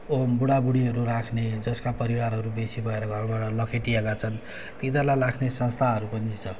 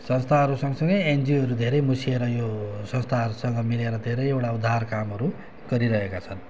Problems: none marked